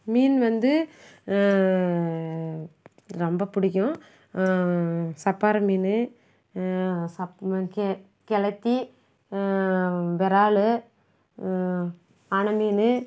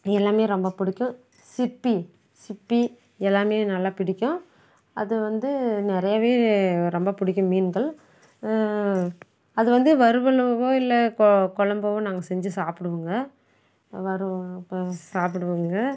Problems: background sounds at intervals